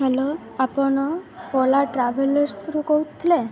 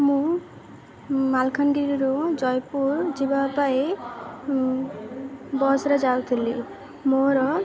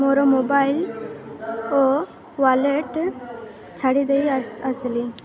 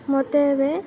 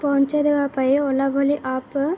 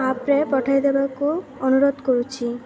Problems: constant background noise, continuous background conversations